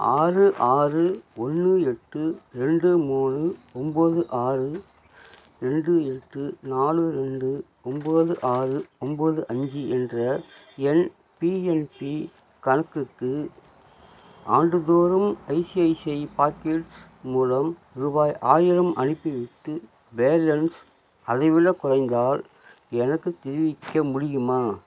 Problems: none marked